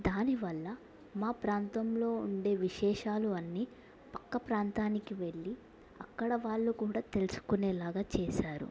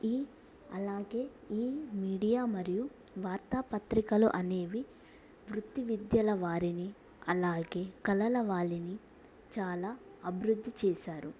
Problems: low volume